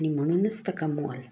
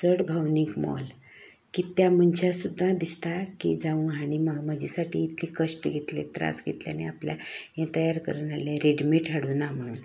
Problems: background sounds at intervals, background conversations at intervals